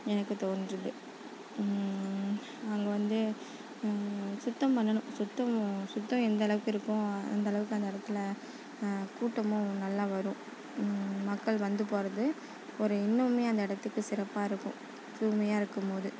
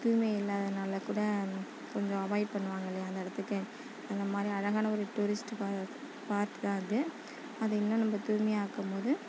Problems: constant background noise, background conversations at intervals